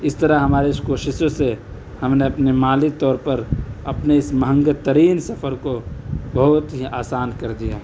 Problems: constant background noise